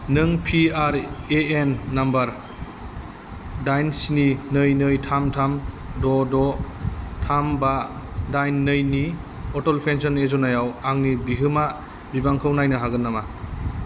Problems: constant background noise